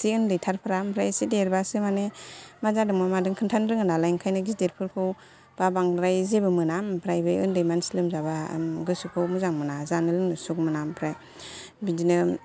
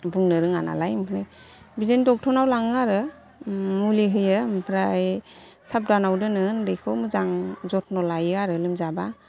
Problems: none marked